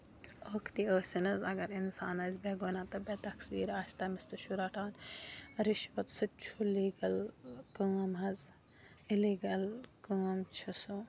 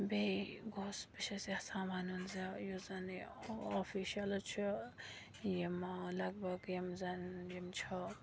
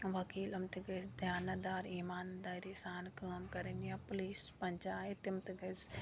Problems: constant background noise, low volume